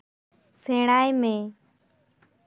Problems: none marked